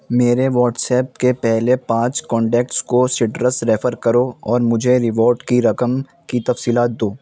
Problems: constant background noise